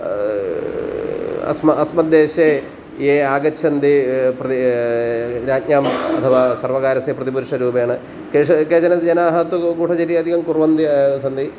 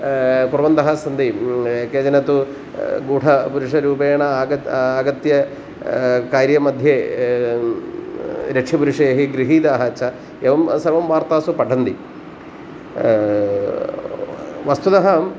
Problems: constant background noise